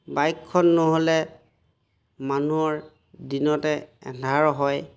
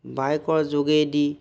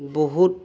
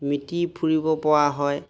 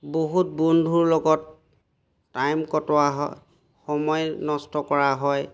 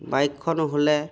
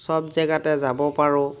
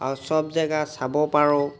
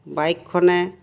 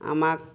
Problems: background sounds at intervals